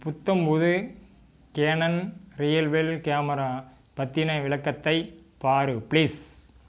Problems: background sounds at intervals